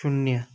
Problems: none marked